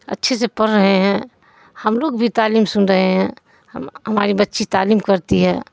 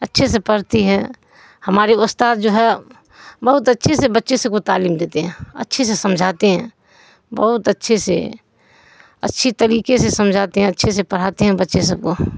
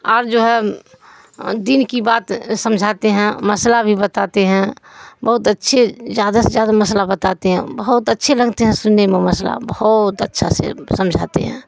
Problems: background sounds at intervals, background conversations at intervals